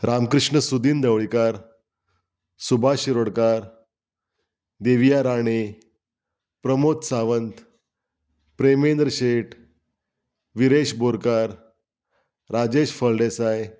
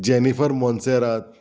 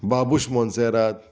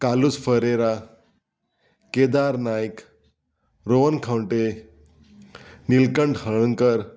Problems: background sounds at intervals